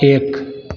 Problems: none marked